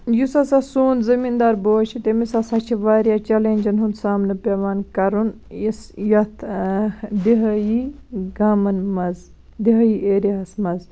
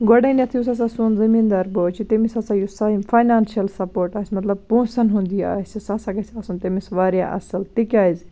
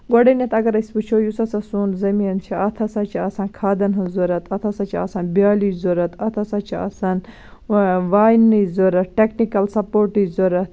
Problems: none marked